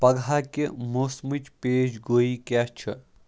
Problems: background sounds at intervals